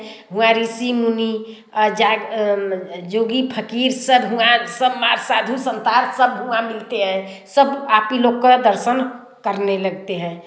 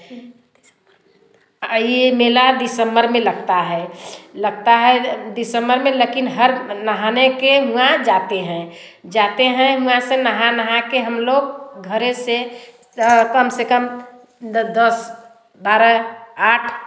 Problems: constant background noise, background conversations at intervals, echo